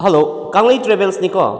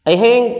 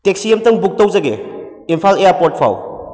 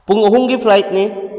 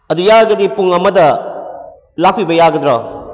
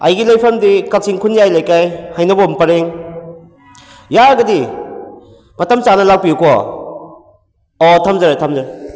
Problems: background sounds at intervals